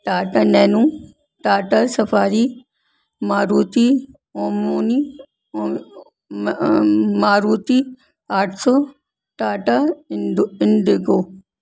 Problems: none marked